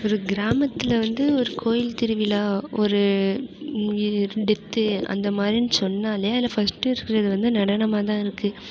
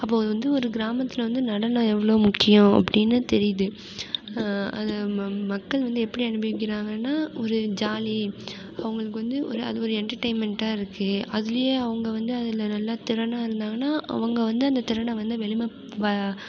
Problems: background sounds at intervals